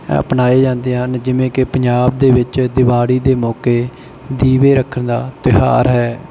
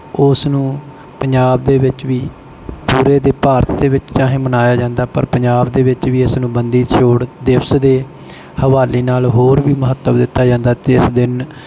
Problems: none marked